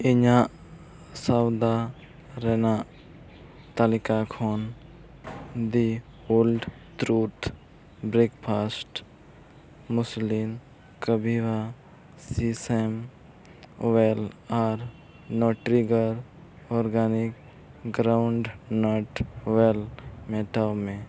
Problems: background sounds at intervals